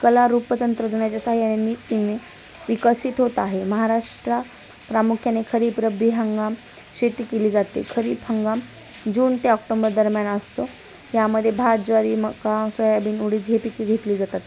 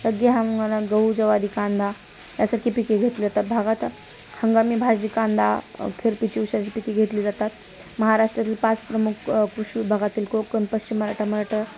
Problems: constant background noise, continuous background conversations